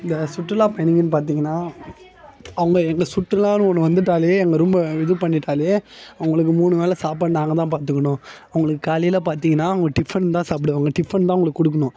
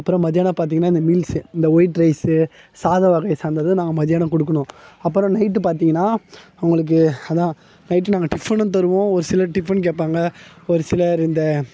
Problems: background conversations at intervals